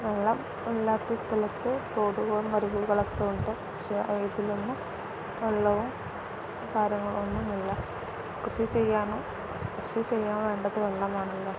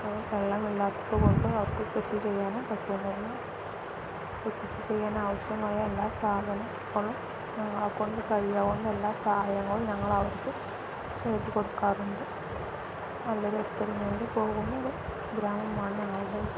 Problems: constant background noise